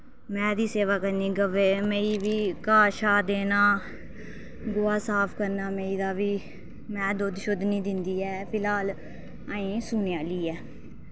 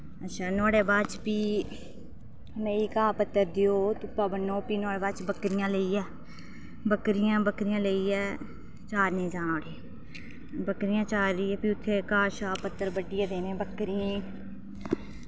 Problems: none marked